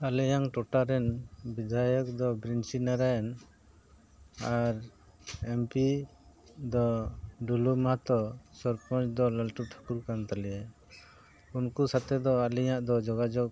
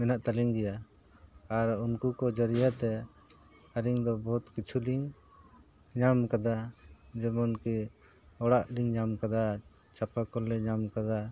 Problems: background sounds at intervals